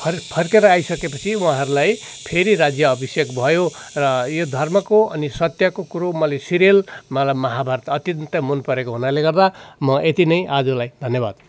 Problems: constant background noise, continuous background conversations